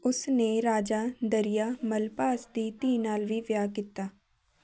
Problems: none marked